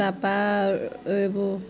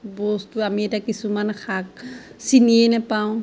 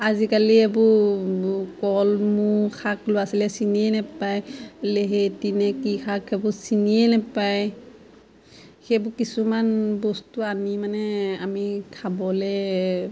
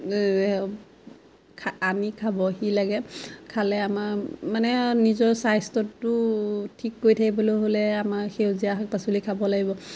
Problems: constant background noise, background conversations at intervals